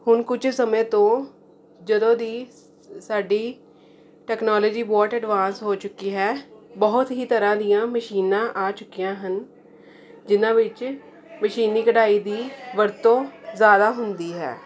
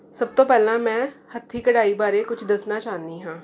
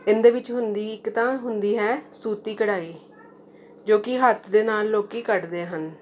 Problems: none marked